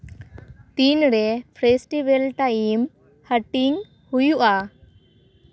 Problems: background sounds at intervals